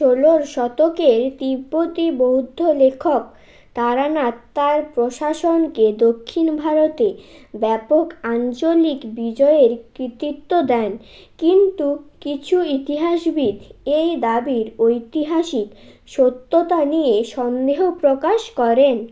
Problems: constant background noise